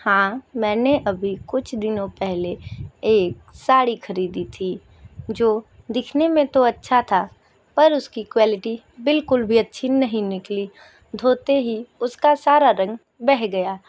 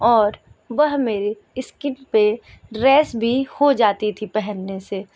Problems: background sounds at intervals